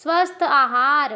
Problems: none marked